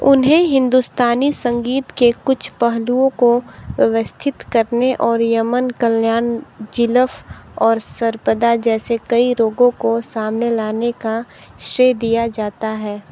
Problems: constant background noise